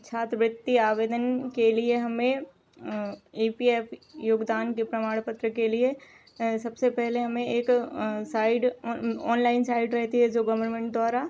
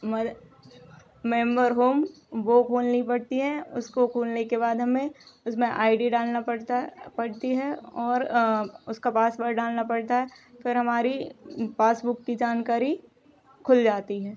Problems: background sounds at intervals